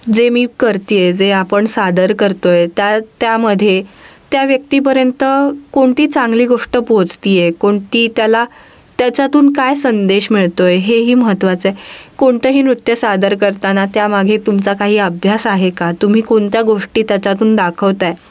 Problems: none marked